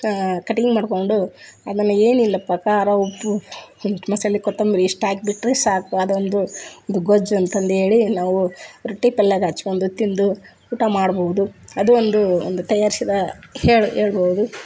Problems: background sounds at intervals